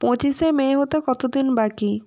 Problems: constant background noise